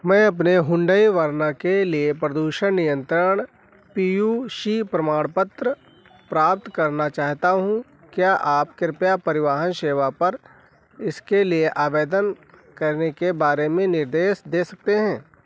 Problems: background sounds at intervals